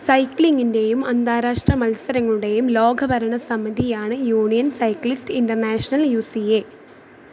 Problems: background sounds at intervals